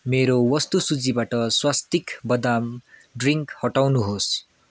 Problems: constant background noise